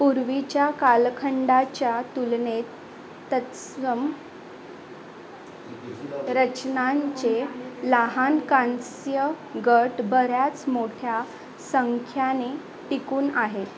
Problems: constant background noise